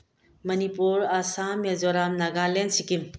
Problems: low volume